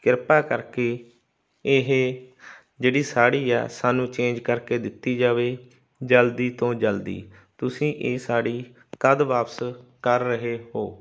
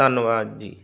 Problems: constant background noise